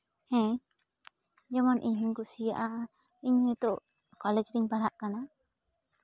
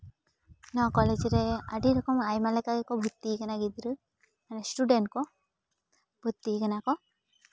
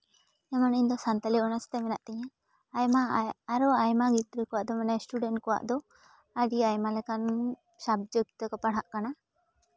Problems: none marked